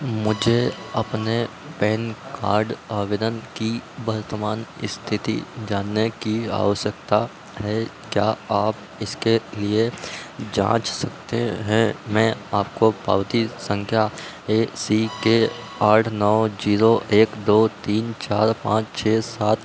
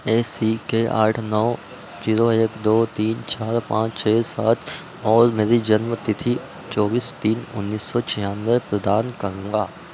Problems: constant background noise